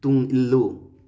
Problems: none marked